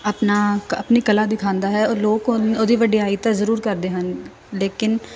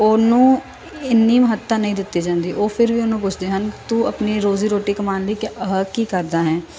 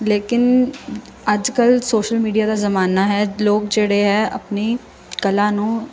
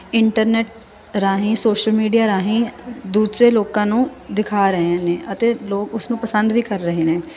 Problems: constant background noise